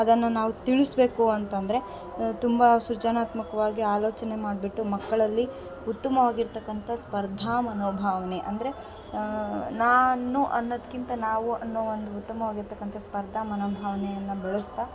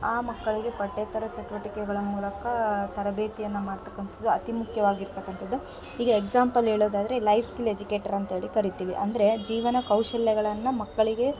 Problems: background sounds at intervals